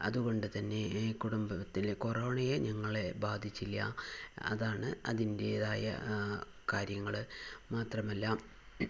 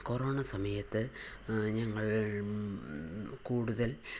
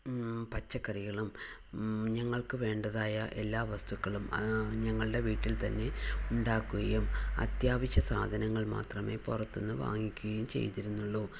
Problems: constant background noise, low volume